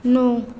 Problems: constant background noise